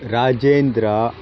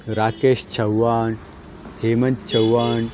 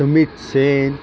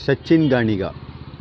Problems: constant background noise